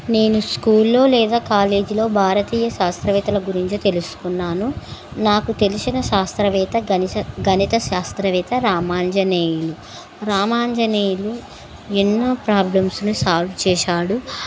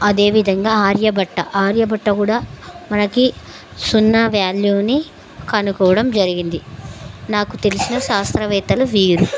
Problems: constant background noise